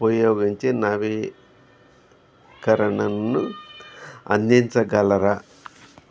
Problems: background conversations at intervals